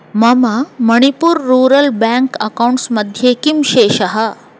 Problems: constant background noise